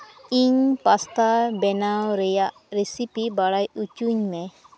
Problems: background sounds at intervals